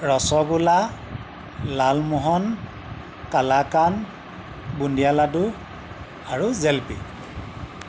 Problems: none marked